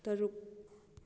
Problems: low volume